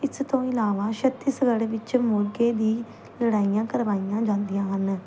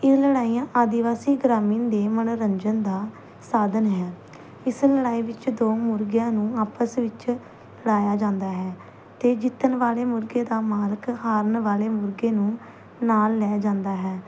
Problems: constant background noise